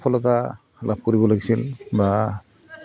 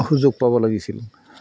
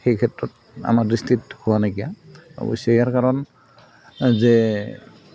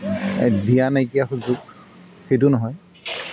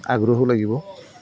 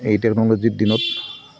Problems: background sounds at intervals